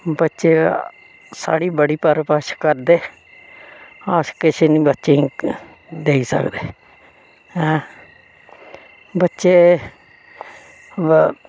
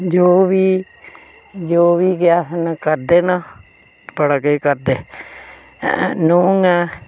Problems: none marked